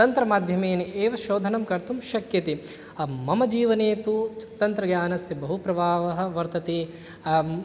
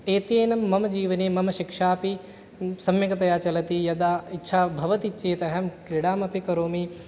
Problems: none marked